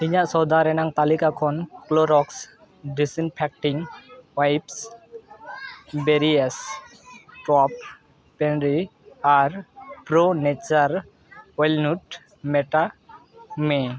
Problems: continuous background conversations